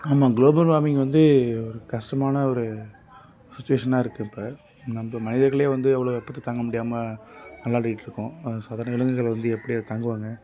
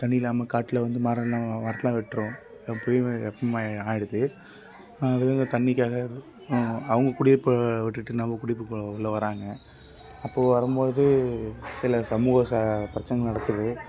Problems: background sounds at intervals